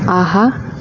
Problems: constant background noise